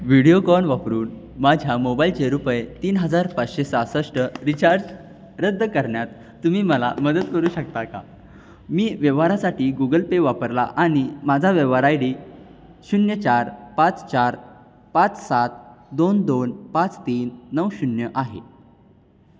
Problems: background sounds at intervals